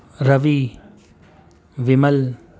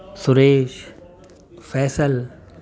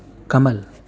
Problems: constant background noise, background conversations at intervals